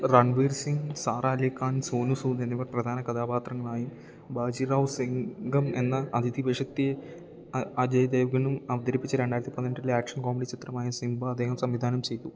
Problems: low volume